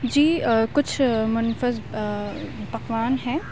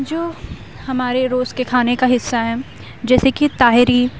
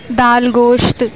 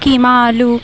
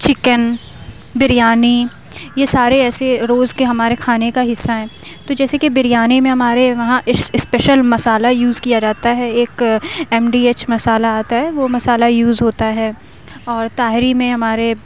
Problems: constant background noise